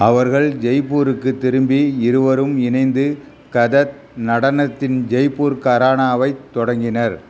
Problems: constant background noise